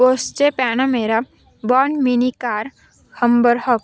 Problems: constant background noise, continuous background conversations